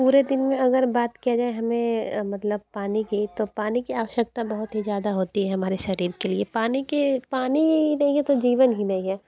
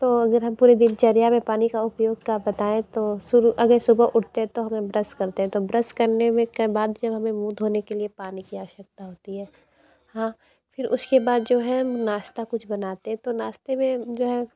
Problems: none marked